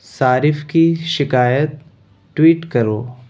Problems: none marked